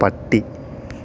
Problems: none marked